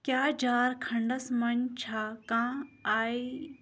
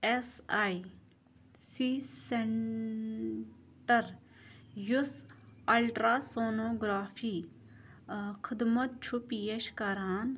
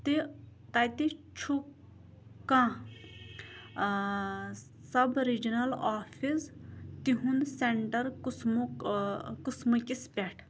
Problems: background sounds at intervals